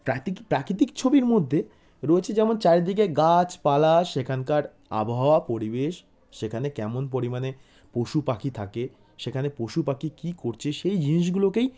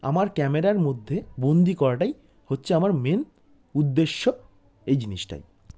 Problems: none marked